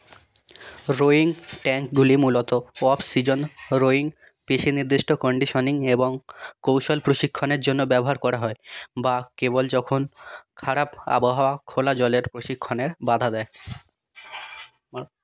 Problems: background sounds at intervals